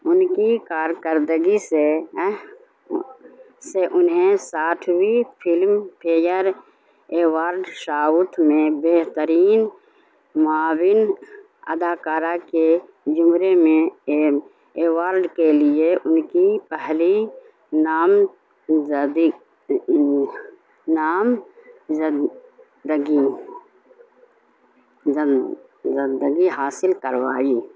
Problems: constant background noise